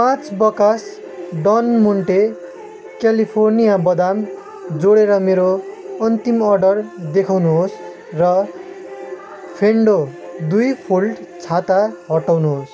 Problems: constant background noise